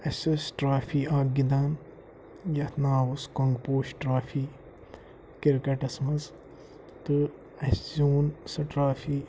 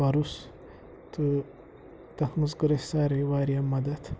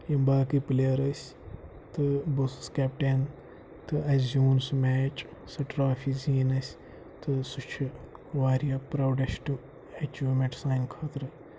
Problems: constant background noise